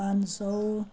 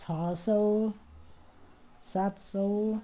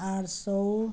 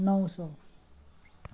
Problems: none marked